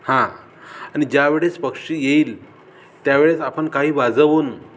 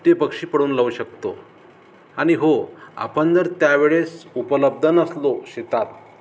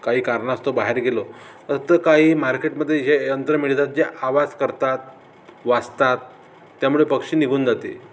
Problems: none marked